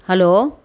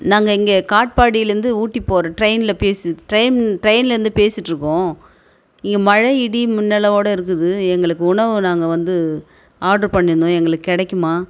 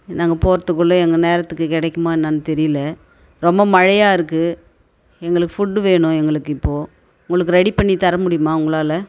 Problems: background conversations at intervals